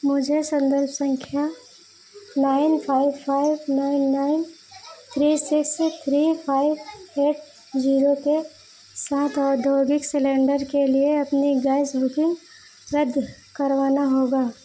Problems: none marked